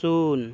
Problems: constant background noise